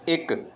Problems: background sounds at intervals